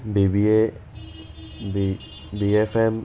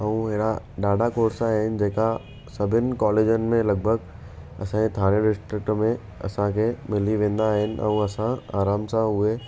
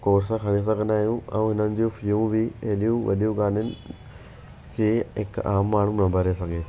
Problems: constant background noise